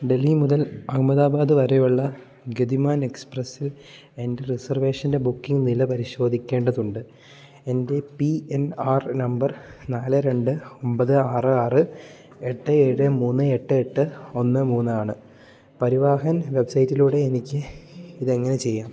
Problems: low volume